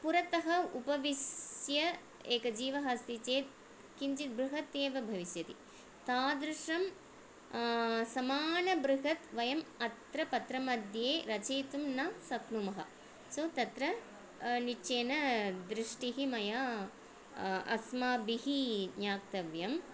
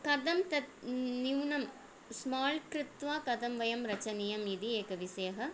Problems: none marked